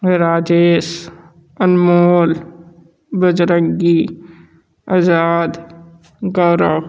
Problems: constant background noise